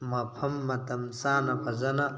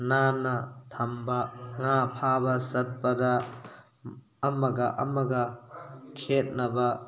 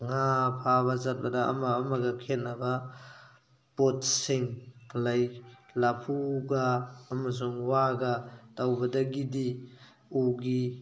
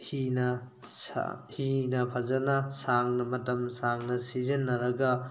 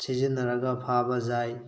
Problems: background sounds at intervals